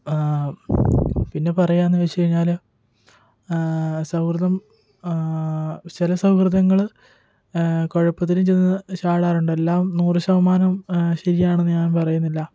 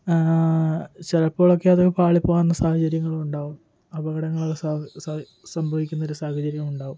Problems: background sounds at intervals, low volume